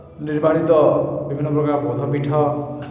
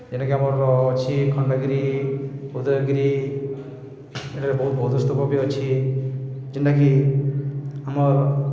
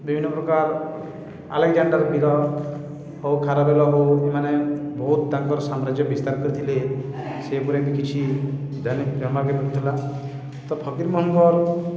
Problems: echo